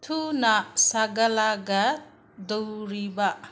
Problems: constant background noise